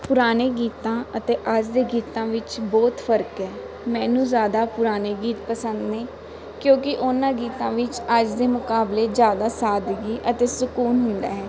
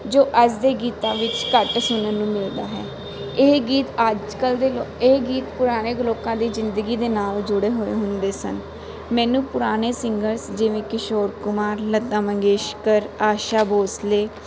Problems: none marked